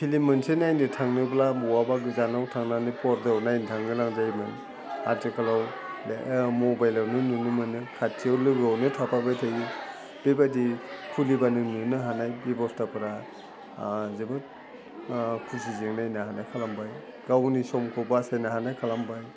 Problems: constant background noise